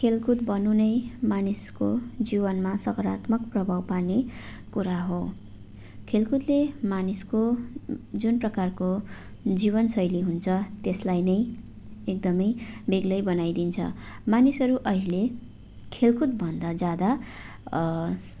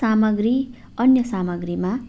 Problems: none marked